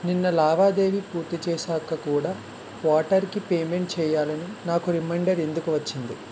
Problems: constant background noise